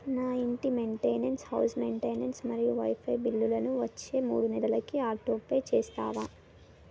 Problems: constant background noise